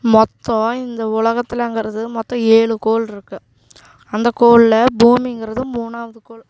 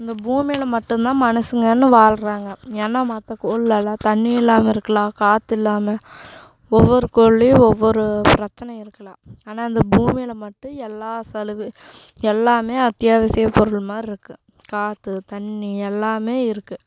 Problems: background sounds at intervals